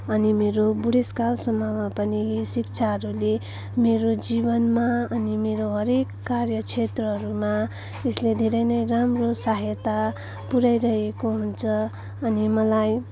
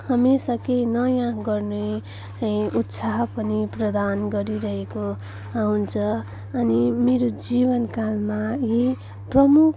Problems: none marked